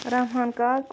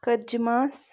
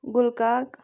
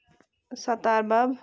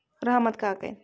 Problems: constant background noise